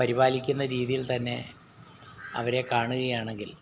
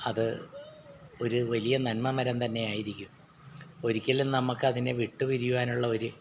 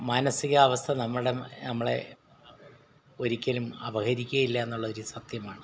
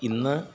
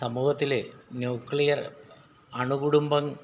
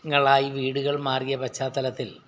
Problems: background sounds at intervals